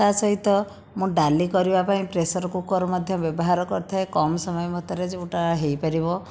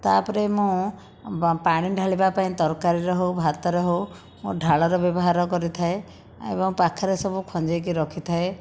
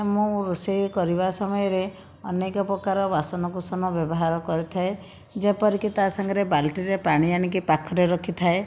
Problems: none marked